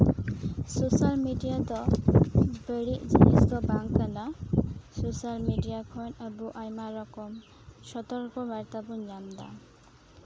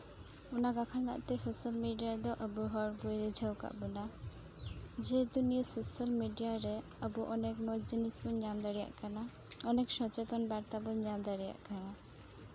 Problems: background sounds at intervals